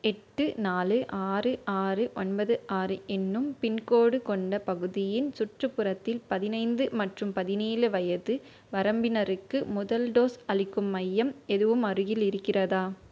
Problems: none marked